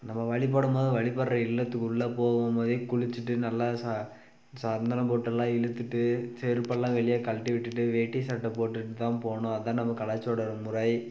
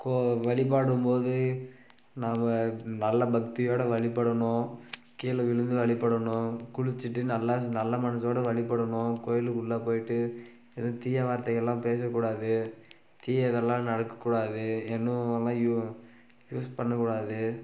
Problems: background sounds at intervals